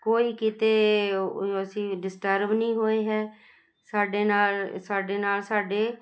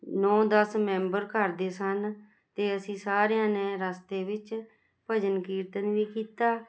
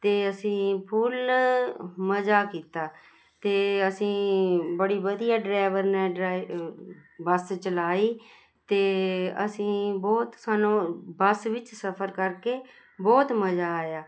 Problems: constant background noise